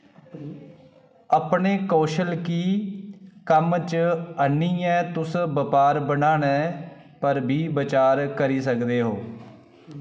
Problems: none marked